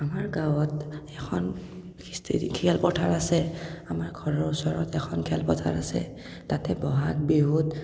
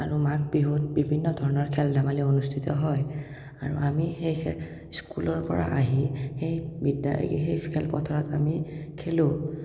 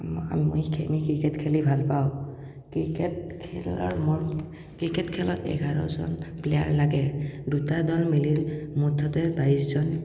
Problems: none marked